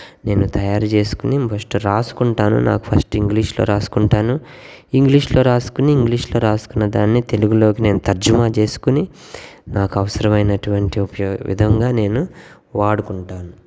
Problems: background sounds at intervals